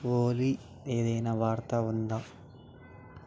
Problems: none marked